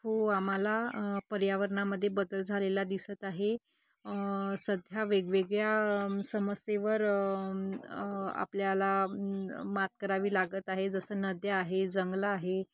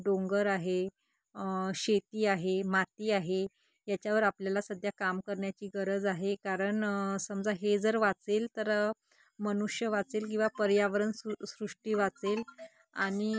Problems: background sounds at intervals